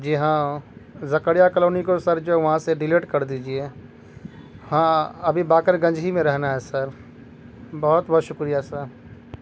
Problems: constant background noise